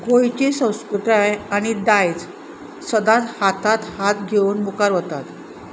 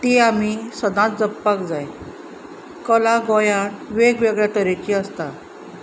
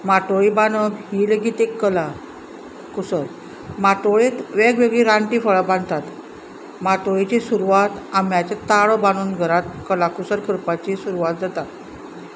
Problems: none marked